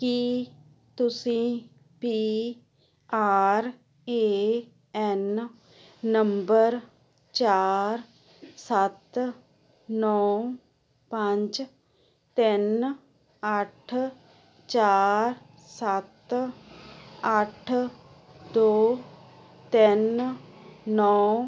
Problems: constant background noise